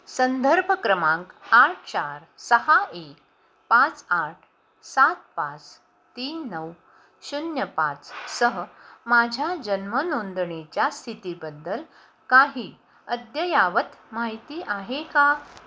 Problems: constant background noise